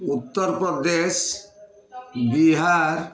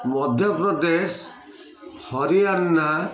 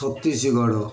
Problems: constant background noise, continuous background conversations